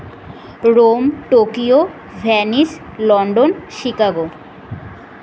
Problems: none marked